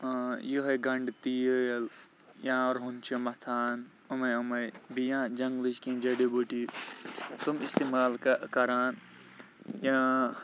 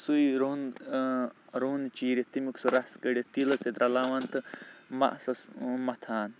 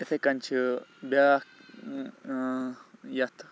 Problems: none marked